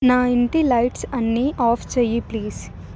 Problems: constant background noise